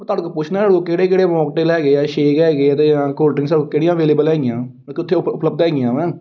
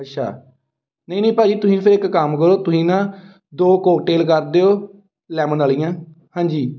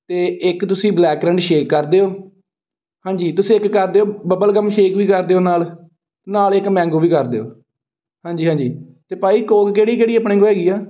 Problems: background sounds at intervals